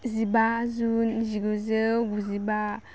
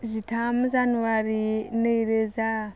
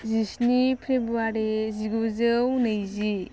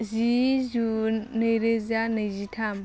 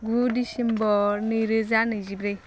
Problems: none marked